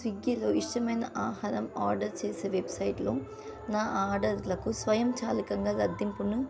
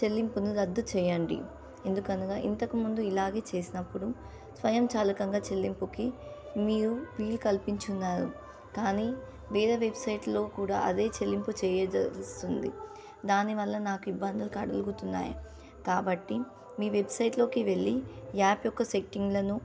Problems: constant background noise